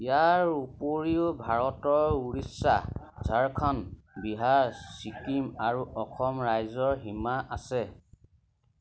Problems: none marked